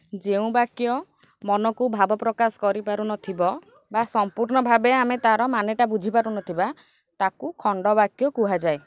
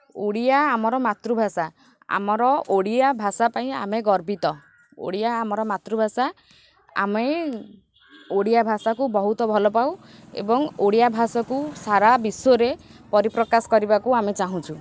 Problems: background sounds at intervals